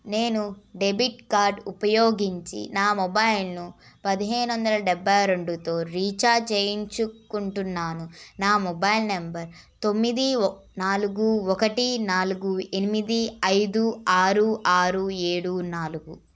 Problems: none marked